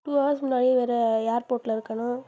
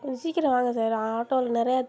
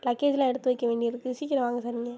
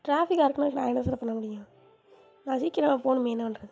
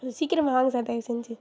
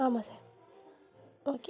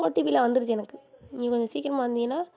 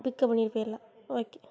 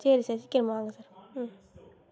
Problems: constant background noise